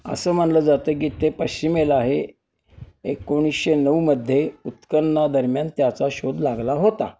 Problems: none marked